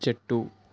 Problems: none marked